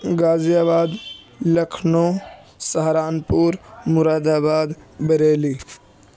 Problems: constant background noise, background conversations at intervals